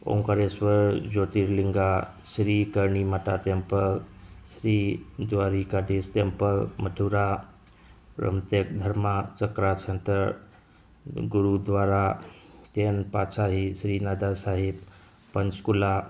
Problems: background sounds at intervals